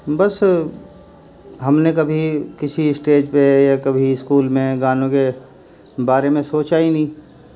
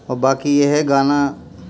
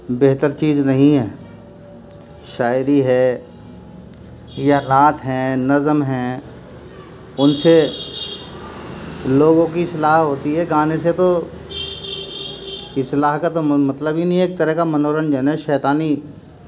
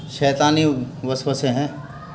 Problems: background sounds at intervals